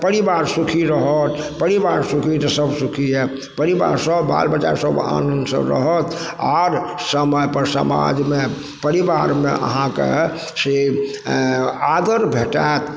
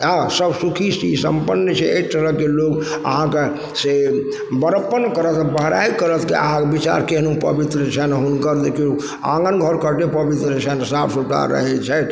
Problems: background sounds at intervals